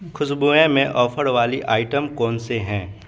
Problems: background sounds at intervals